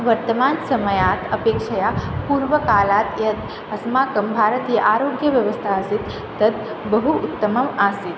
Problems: constant background noise